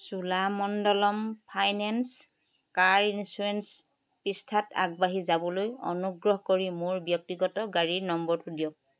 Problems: none marked